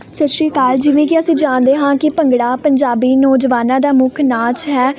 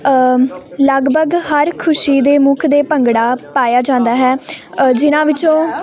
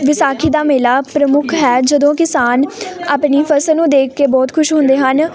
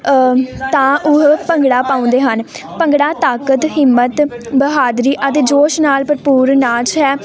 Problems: none marked